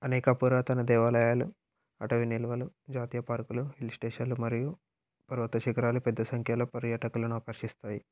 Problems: none marked